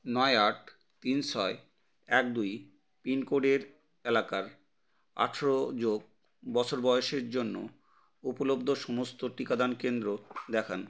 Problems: none marked